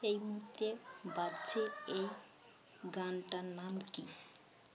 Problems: none marked